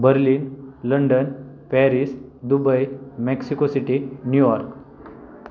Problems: constant background noise